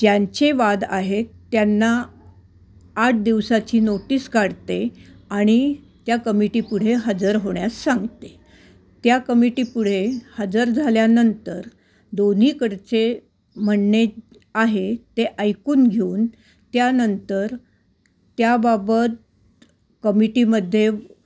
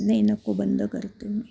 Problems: none marked